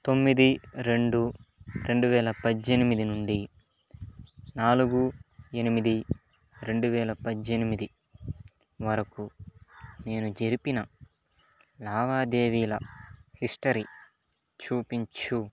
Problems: background sounds at intervals